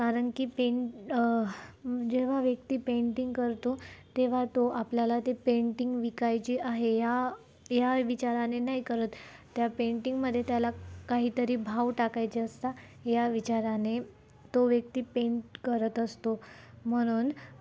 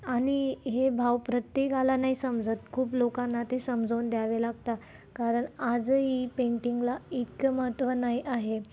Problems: constant background noise, background conversations at intervals